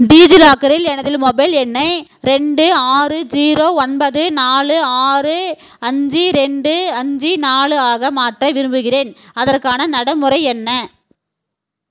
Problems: constant background noise, background conversations at intervals